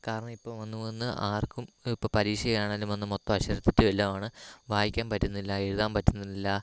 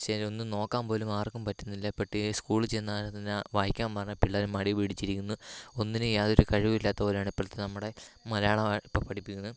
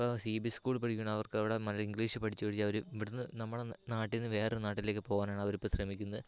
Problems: low volume